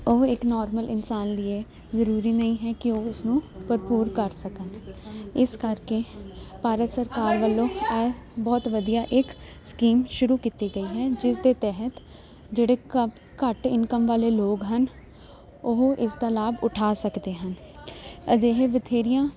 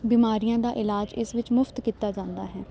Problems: constant background noise